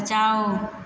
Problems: constant background noise, continuous background conversations